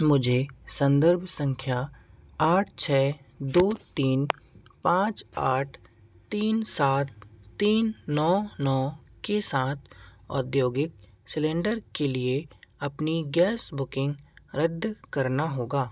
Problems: constant background noise